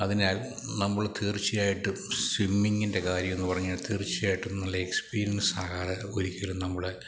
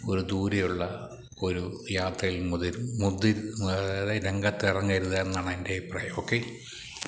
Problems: none marked